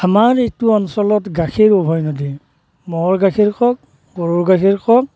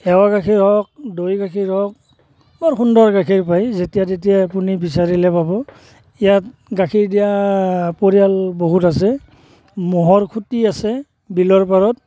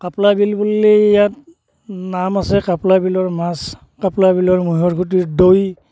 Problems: background sounds at intervals